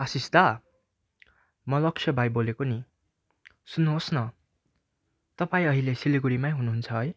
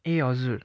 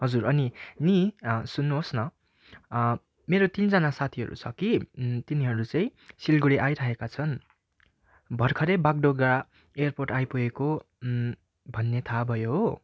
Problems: background sounds at intervals